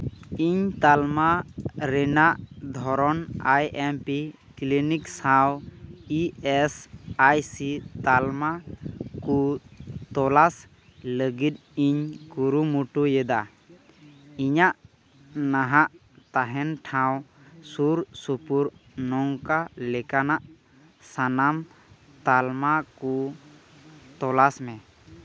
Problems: constant background noise, background conversations at intervals